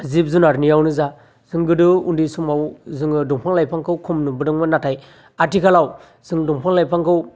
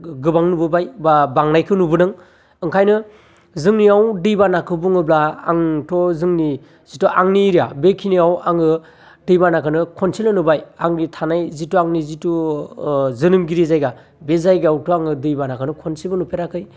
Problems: constant background noise